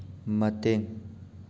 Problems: constant background noise